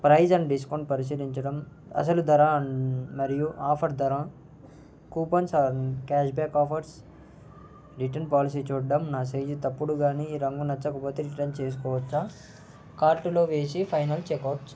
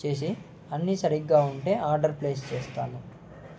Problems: constant background noise